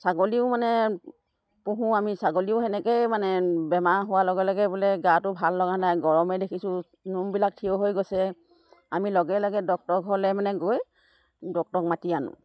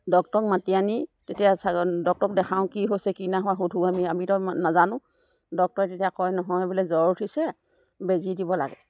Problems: none marked